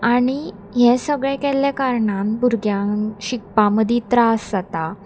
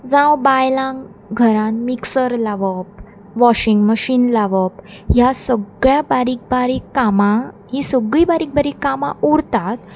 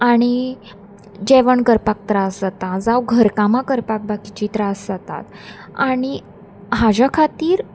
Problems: constant background noise